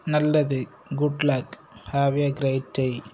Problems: constant background noise